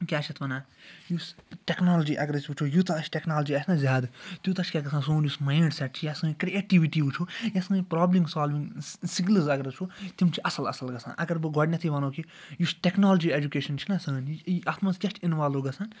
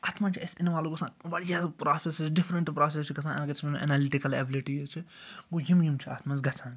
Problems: background sounds at intervals